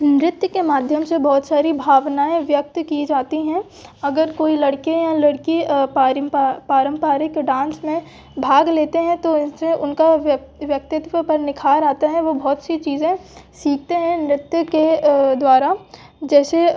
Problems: background sounds at intervals, background conversations at intervals